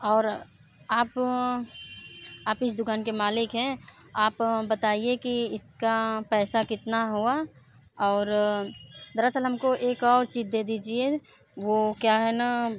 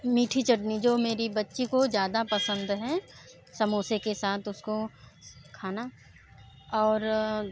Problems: background sounds at intervals